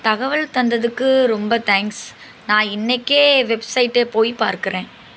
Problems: constant background noise